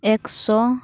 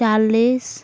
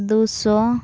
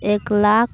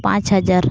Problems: constant background noise